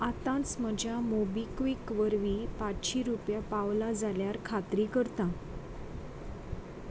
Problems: constant background noise